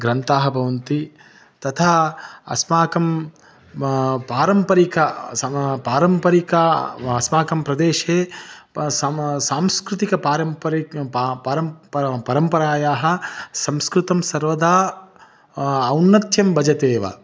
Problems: background sounds at intervals